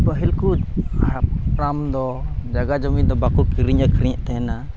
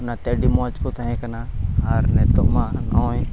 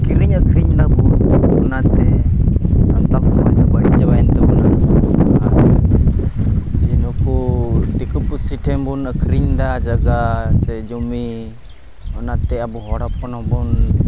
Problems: constant background noise, low volume